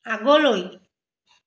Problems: none marked